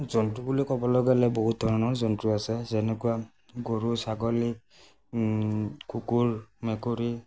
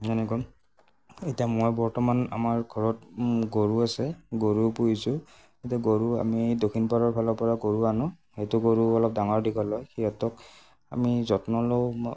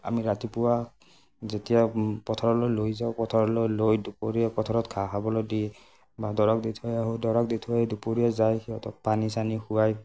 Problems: none marked